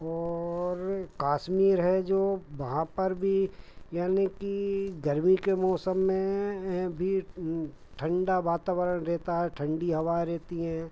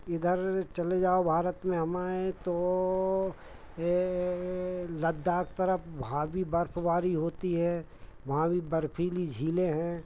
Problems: none marked